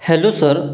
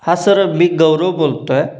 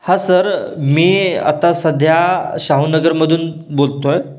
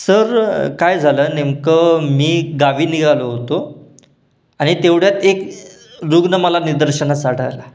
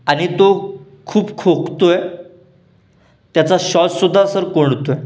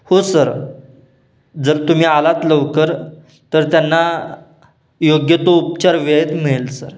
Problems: none marked